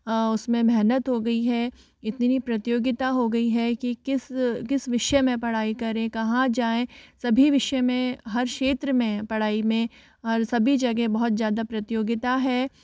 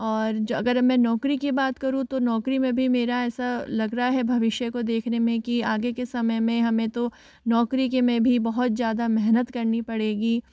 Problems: background sounds at intervals